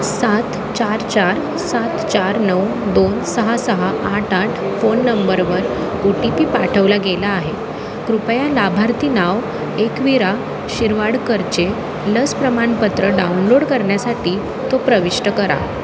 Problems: constant background noise